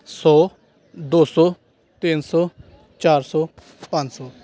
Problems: background conversations at intervals